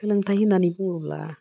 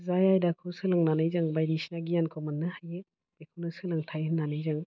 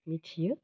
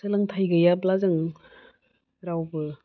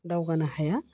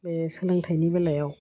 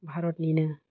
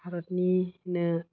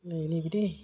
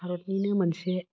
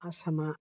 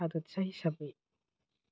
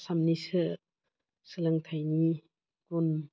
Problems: low volume